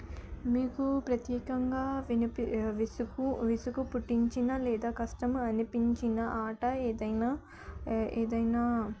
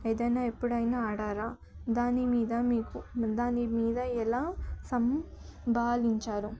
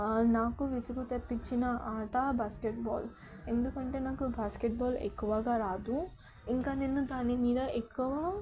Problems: background sounds at intervals, background conversations at intervals, low volume